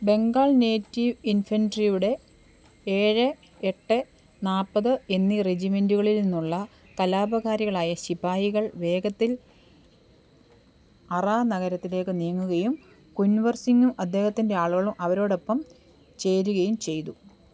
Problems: low volume